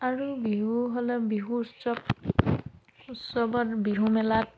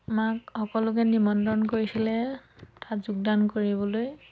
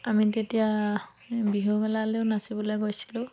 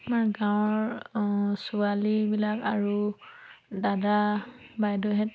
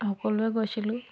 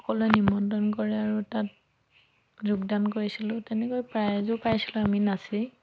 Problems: none marked